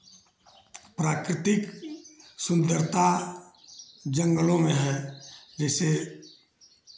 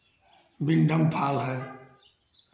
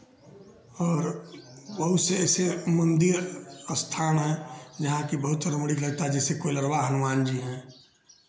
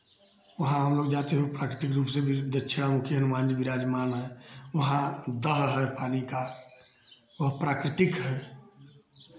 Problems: none marked